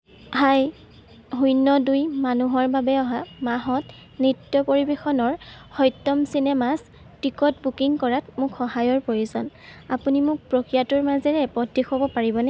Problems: constant background noise